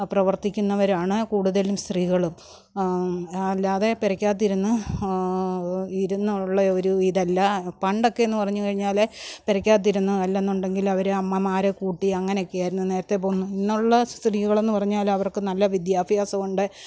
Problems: none marked